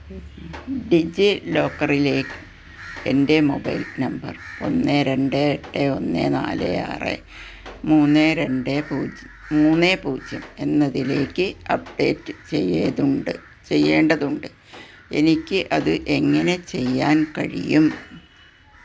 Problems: constant background noise